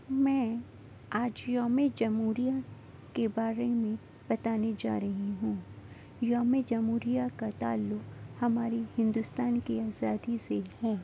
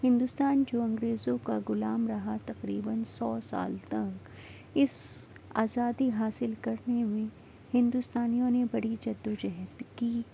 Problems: constant background noise